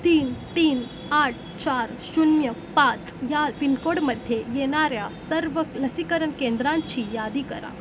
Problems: constant background noise